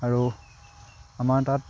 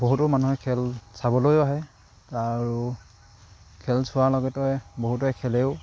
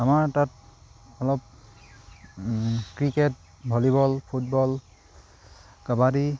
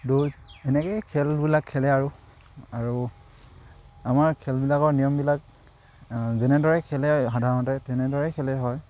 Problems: none marked